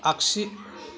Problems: none marked